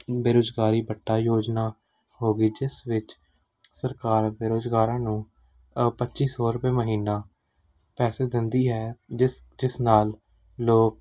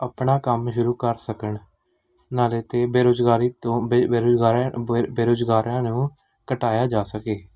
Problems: background sounds at intervals